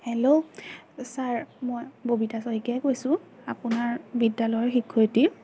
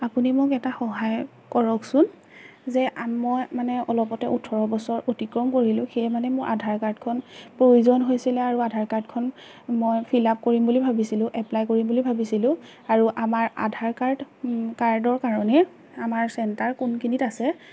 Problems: none marked